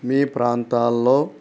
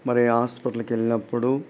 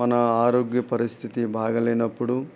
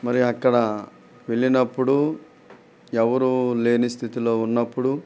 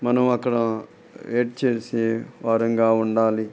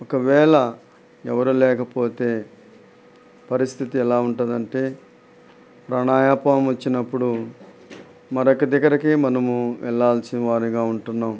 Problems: none marked